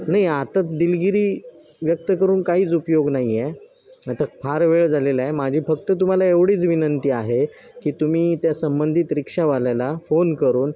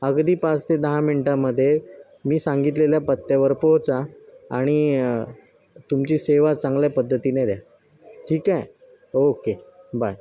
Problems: none marked